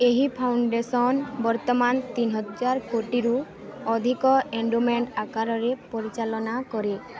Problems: constant background noise, continuous background conversations